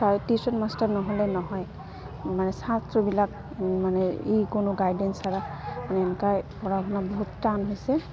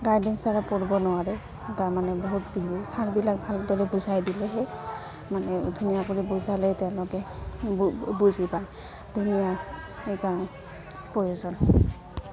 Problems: constant background noise, continuous background conversations